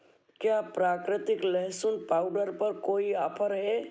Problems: none marked